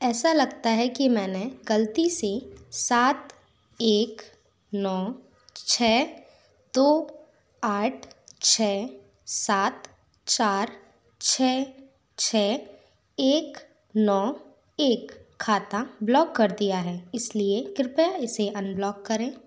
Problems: none marked